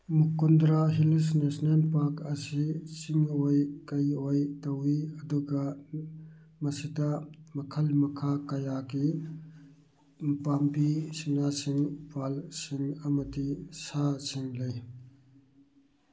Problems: none marked